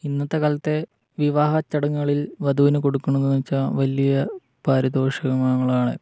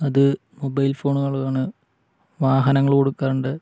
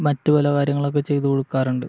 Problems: none marked